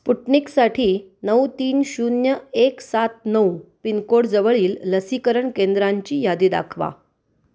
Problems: constant background noise